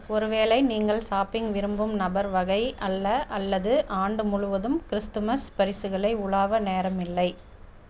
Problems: none marked